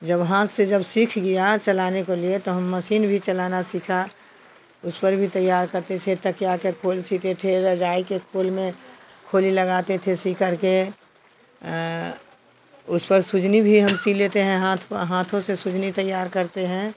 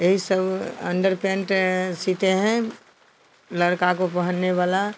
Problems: constant background noise